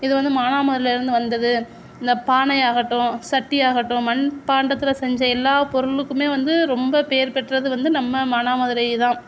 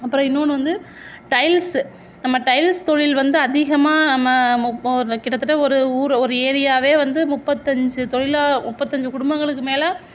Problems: none marked